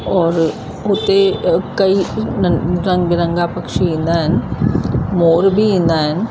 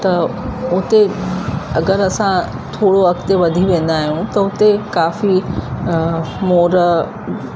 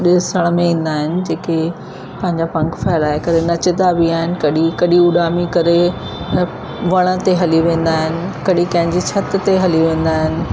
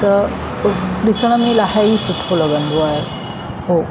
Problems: constant background noise, echo